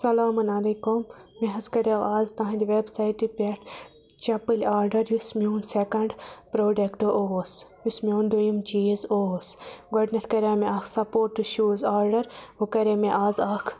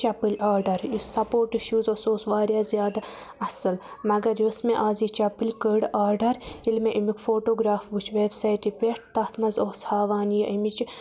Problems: constant background noise